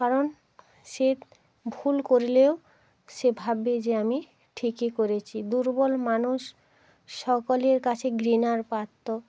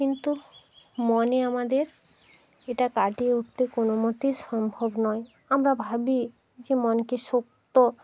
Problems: background sounds at intervals